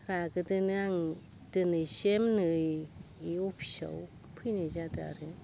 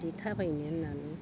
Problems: constant background noise